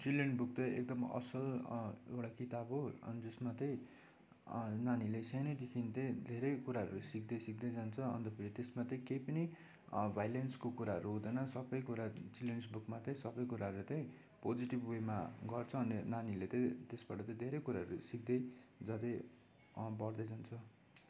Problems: none marked